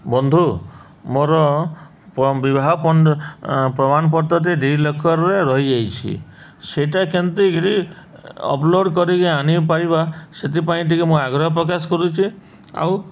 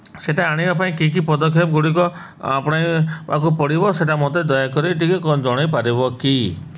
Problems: none marked